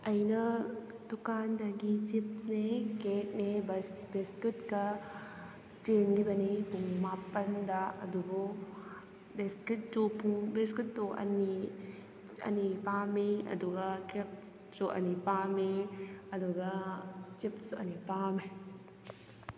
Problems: constant background noise